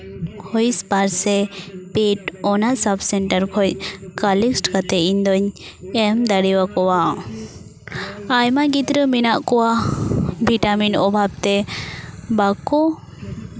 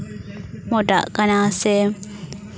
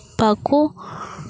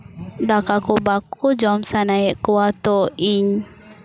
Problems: background conversations at intervals